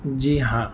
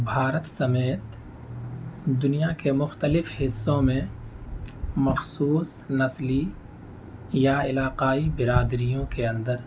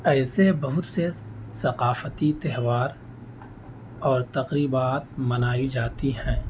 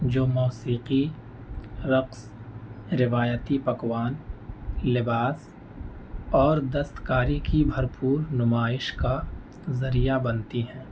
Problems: constant background noise